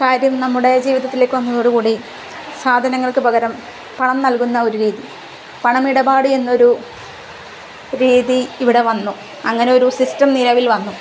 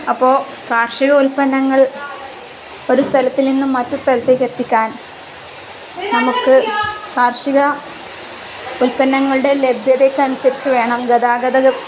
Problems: constant background noise